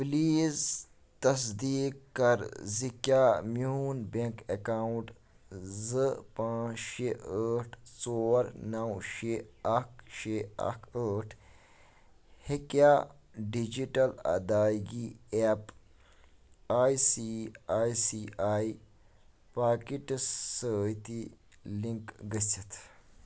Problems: background sounds at intervals